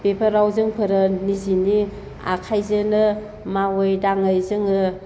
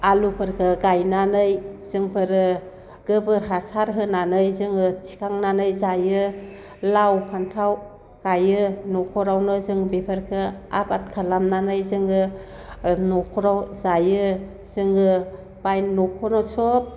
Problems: constant background noise